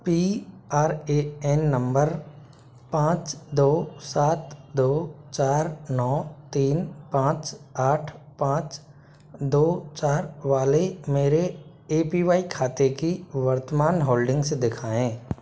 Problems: constant background noise